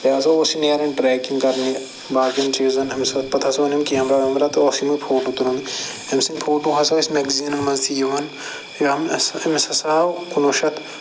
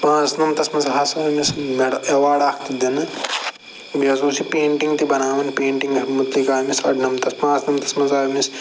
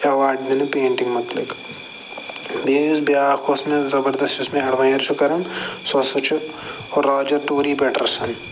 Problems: constant background noise